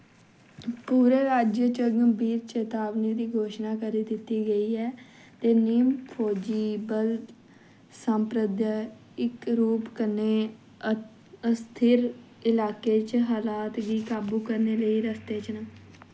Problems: background sounds at intervals